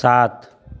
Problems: none marked